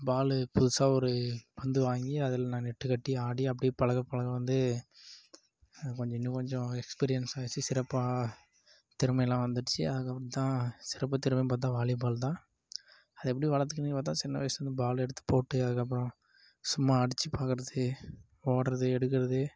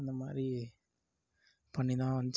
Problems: none marked